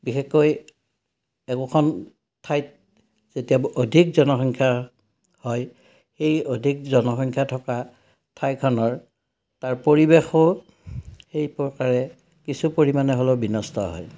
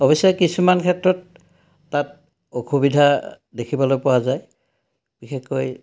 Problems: none marked